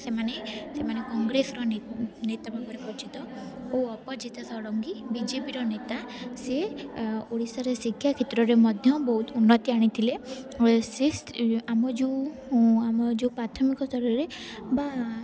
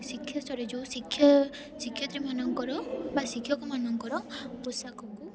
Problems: constant background noise, continuous background conversations